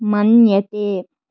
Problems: none marked